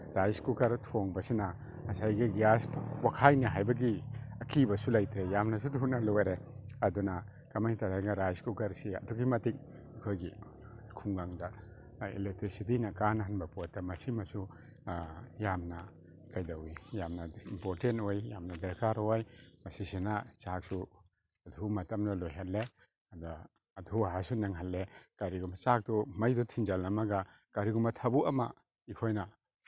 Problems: none marked